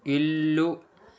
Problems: none marked